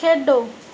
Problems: background sounds at intervals